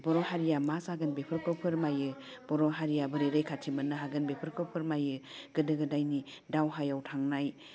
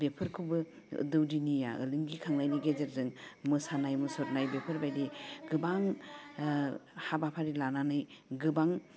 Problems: none marked